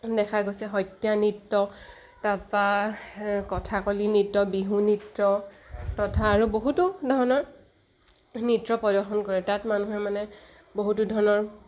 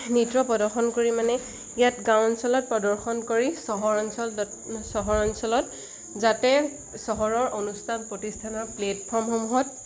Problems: constant background noise